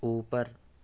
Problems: constant background noise, low volume